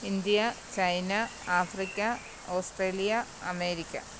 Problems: low volume